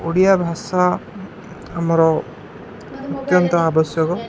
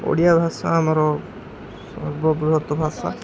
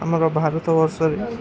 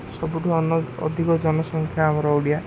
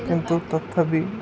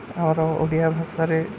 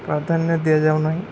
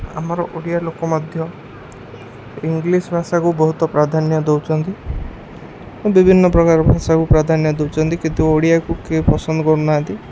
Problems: constant background noise, background conversations at intervals